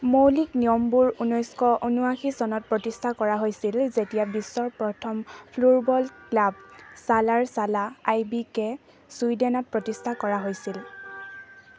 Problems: none marked